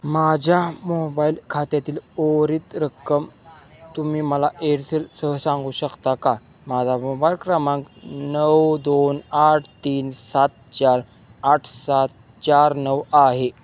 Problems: background sounds at intervals, background conversations at intervals